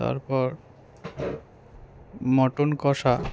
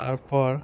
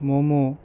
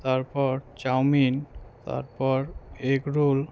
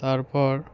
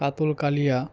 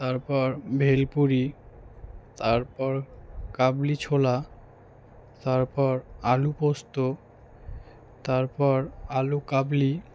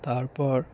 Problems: background sounds at intervals